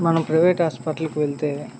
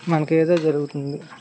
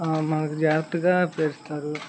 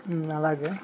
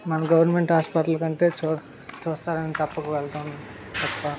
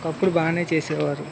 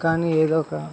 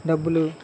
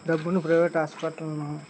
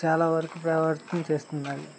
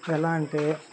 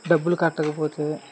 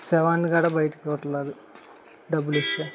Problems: constant background noise